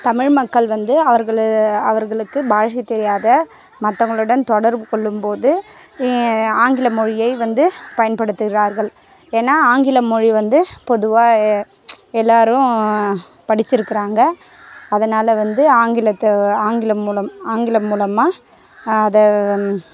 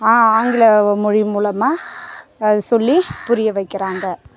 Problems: constant background noise